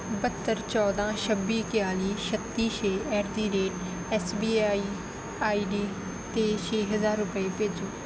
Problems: none marked